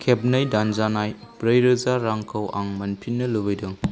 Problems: constant background noise